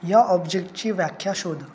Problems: constant background noise